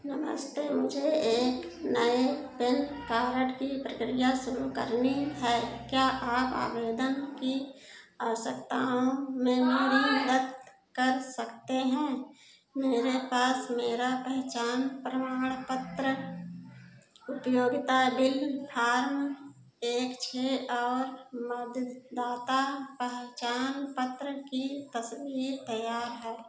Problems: background sounds at intervals